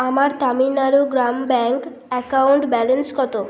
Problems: constant background noise